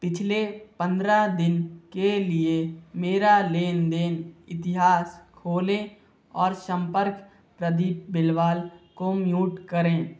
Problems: constant background noise